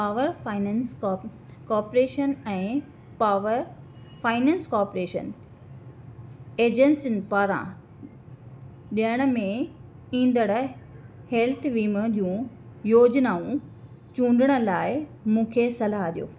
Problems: none marked